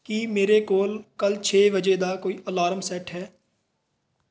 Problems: none marked